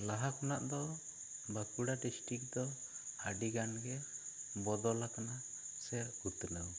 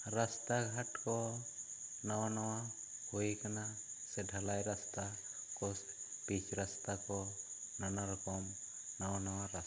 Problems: low volume